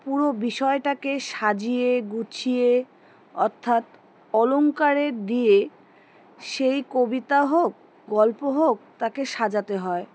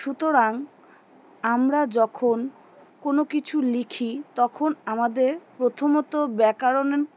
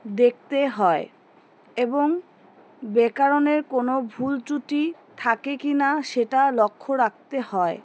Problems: constant background noise